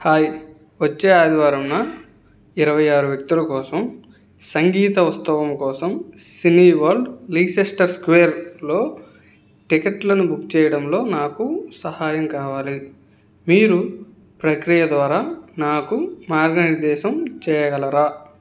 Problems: none marked